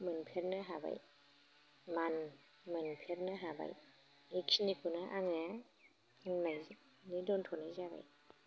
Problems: low volume